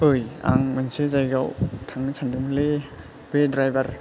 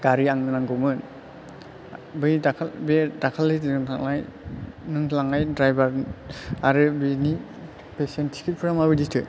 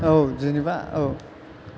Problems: low volume